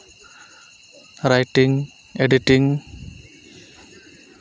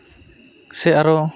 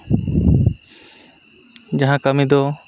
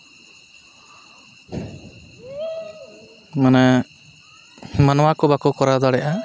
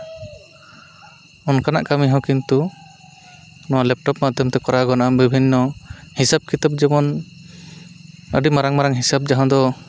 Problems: constant background noise